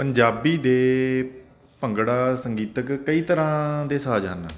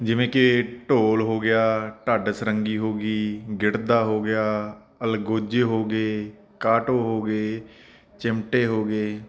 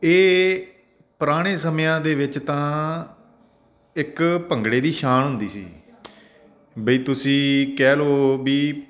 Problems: constant background noise